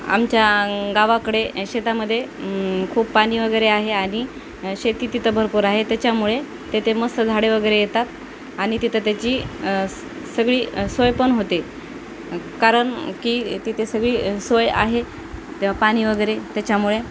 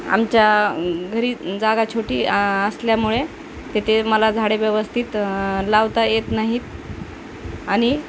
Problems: constant background noise, background conversations at intervals